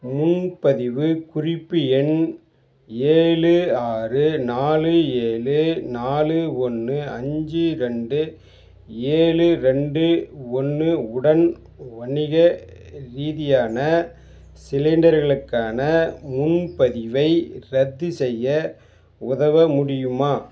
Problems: background sounds at intervals